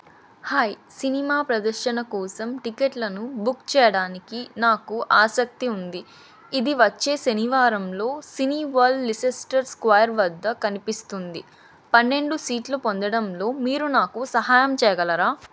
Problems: none marked